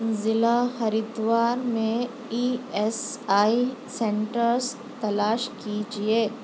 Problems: constant background noise